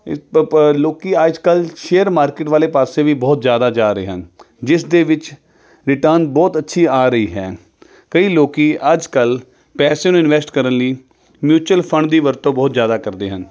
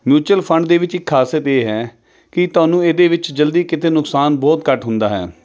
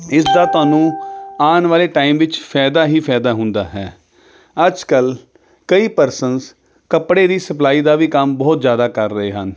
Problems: none marked